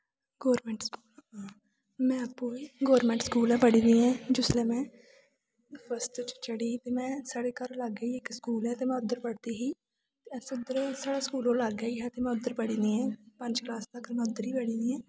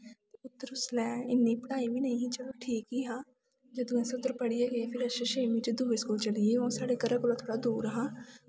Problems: background sounds at intervals, low volume